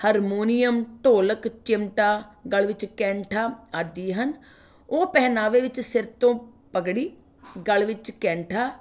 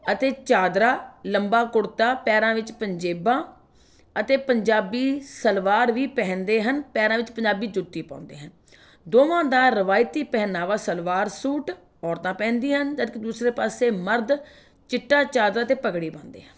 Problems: background conversations at intervals